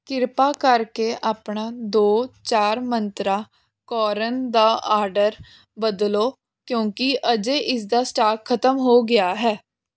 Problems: none marked